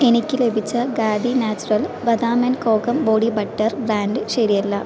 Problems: constant background noise